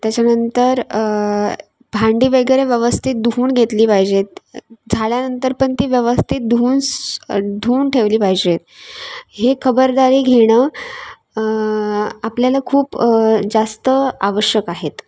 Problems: background sounds at intervals